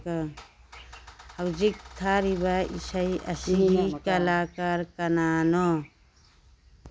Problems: background conversations at intervals